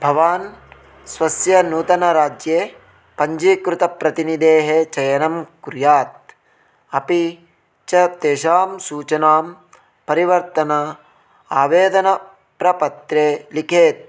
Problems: none marked